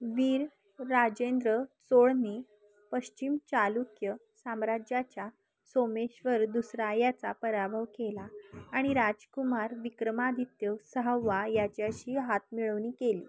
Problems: none marked